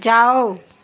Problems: none marked